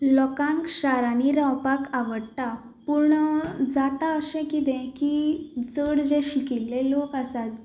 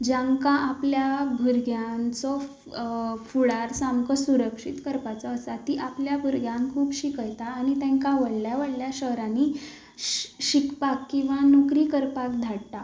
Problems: background sounds at intervals